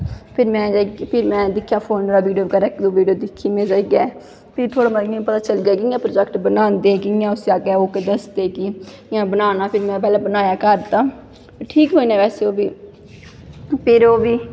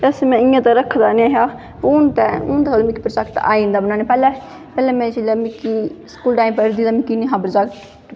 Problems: echo